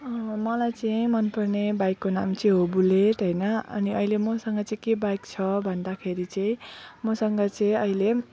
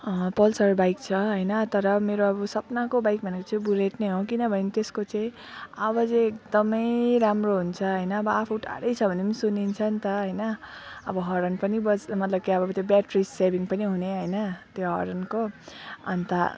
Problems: constant background noise, background conversations at intervals